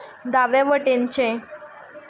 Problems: background sounds at intervals